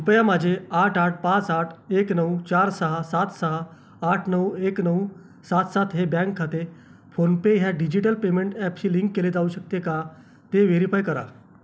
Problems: constant background noise, background conversations at intervals